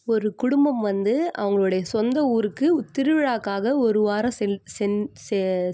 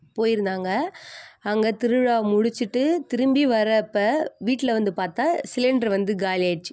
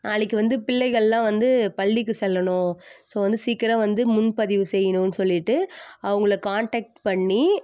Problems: none marked